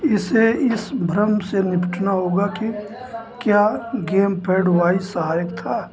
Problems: constant background noise